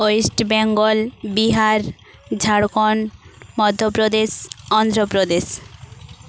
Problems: background sounds at intervals